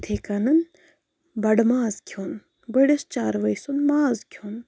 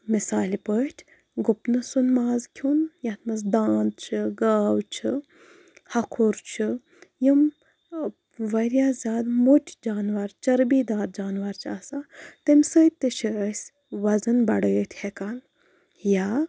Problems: background sounds at intervals